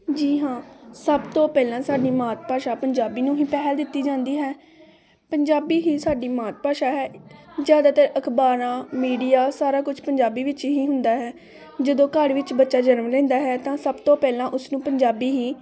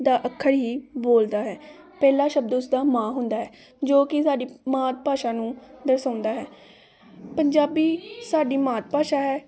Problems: constant background noise, continuous background conversations